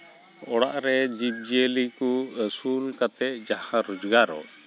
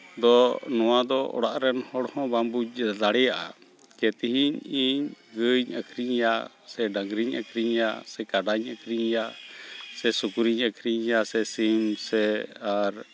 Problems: background sounds at intervals, background conversations at intervals